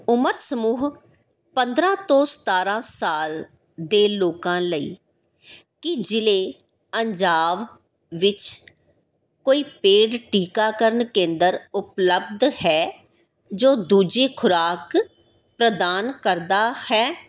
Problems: background sounds at intervals